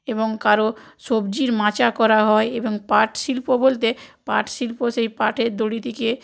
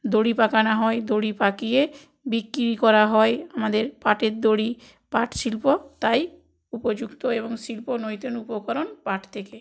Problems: background sounds at intervals